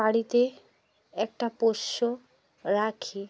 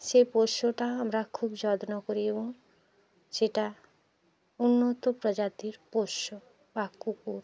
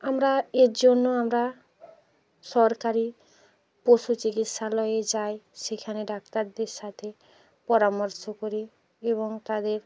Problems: continuous background conversations